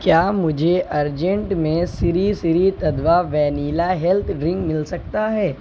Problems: none marked